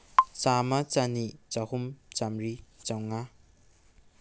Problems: low volume